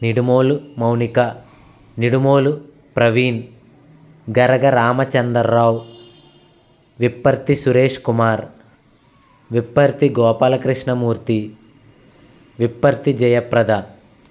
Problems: constant background noise